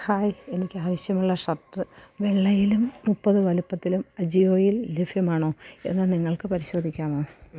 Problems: low volume